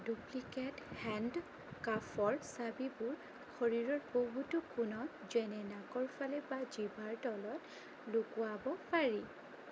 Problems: constant background noise, low volume